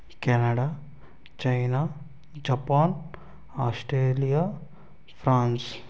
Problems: constant background noise, low volume